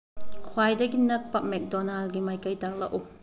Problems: constant background noise